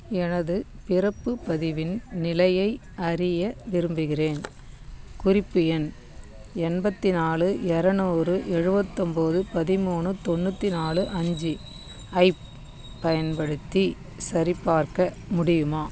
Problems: background sounds at intervals